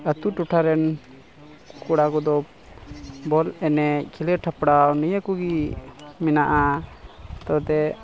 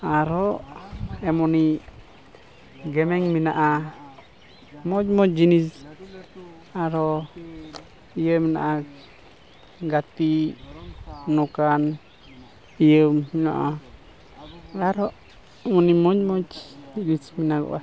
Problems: constant background noise, continuous background conversations